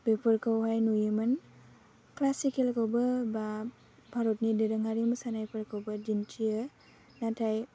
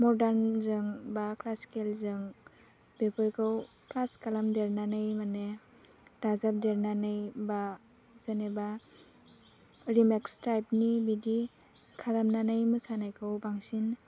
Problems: low volume